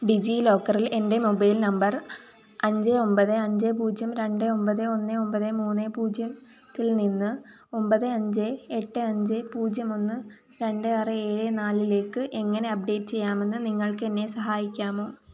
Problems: background sounds at intervals